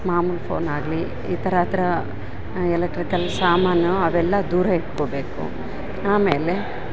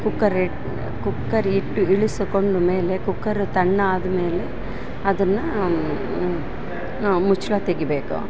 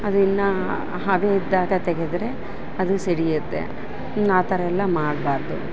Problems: background sounds at intervals